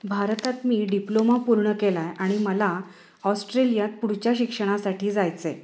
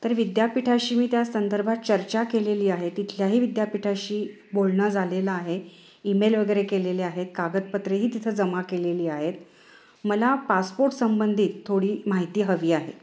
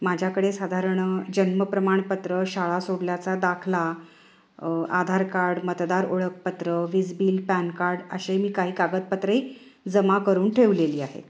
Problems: none marked